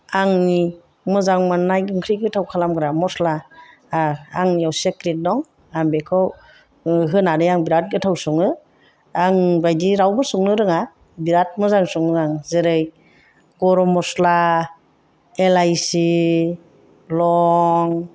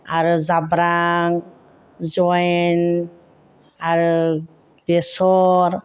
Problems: none marked